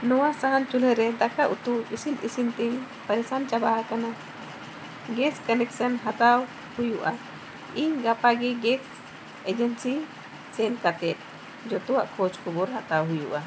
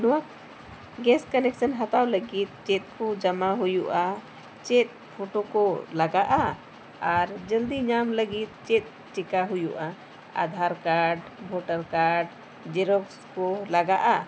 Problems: constant background noise